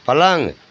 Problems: constant background noise